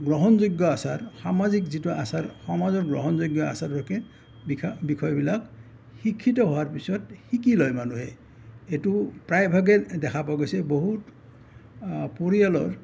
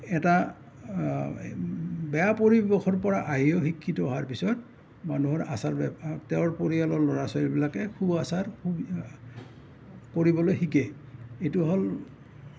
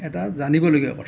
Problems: none marked